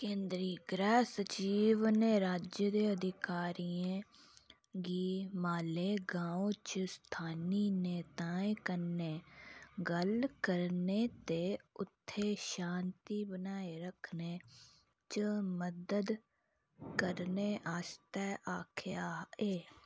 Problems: none marked